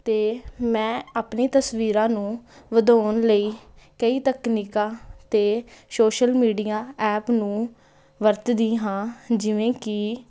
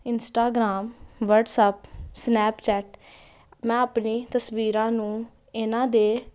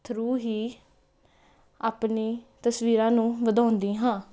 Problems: constant background noise